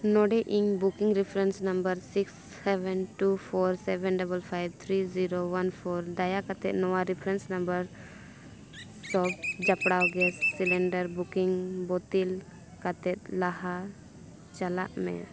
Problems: constant background noise, background conversations at intervals